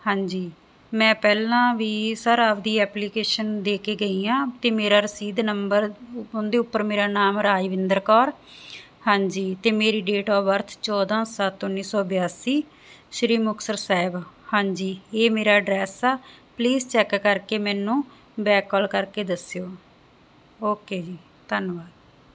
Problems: constant background noise